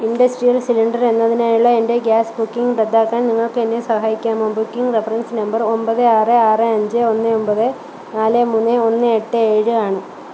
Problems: constant background noise